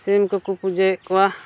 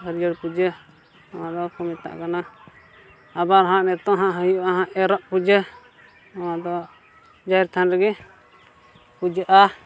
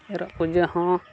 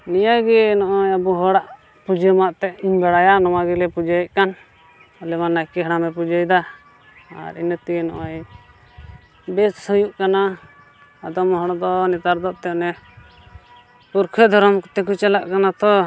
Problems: constant background noise